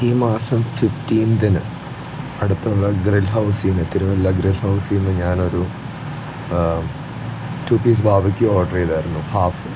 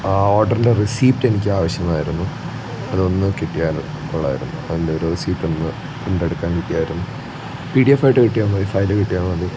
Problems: constant background noise